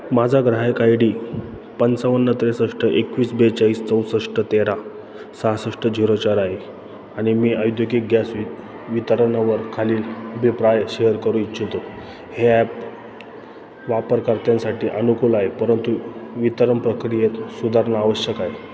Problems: background sounds at intervals